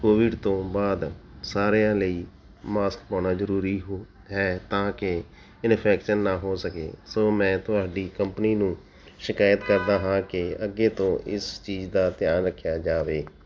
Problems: none marked